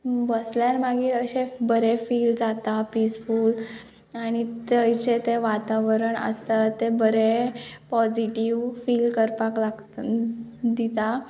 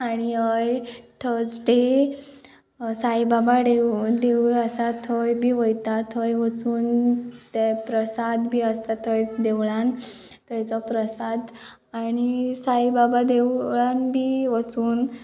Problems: background sounds at intervals, background conversations at intervals